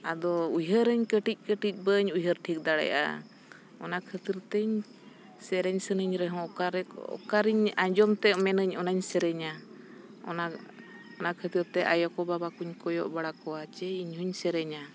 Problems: none marked